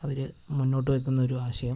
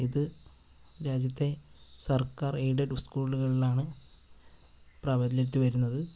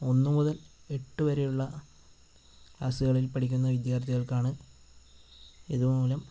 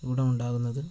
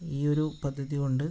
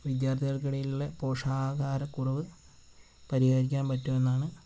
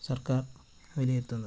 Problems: constant background noise